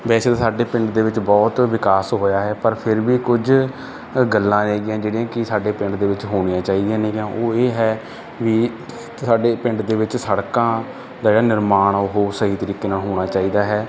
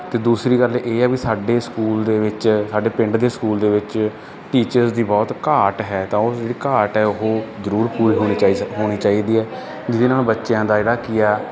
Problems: none marked